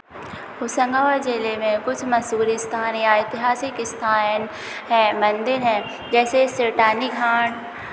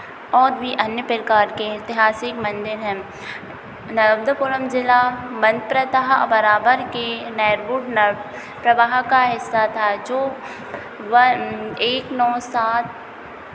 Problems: constant background noise, continuous background conversations